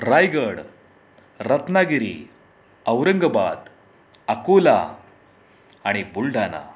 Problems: none marked